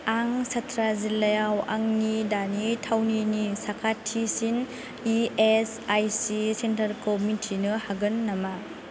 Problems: none marked